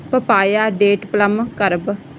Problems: background sounds at intervals